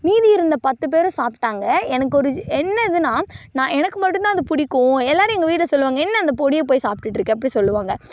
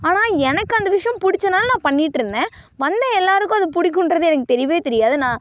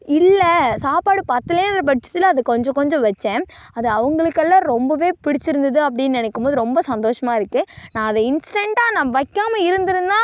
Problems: none marked